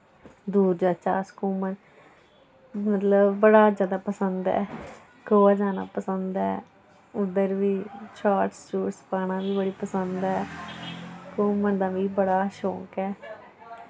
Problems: none marked